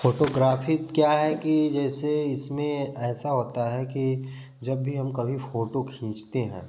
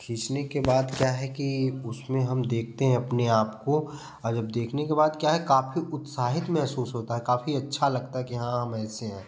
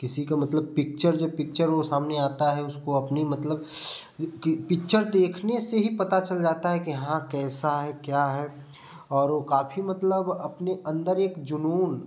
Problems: constant background noise